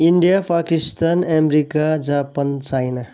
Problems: background sounds at intervals